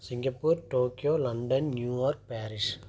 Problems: low volume